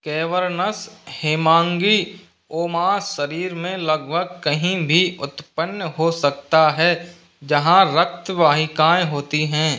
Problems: none marked